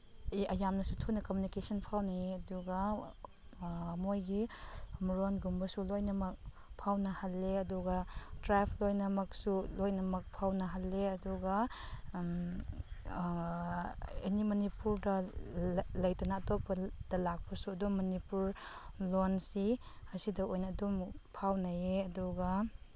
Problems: none marked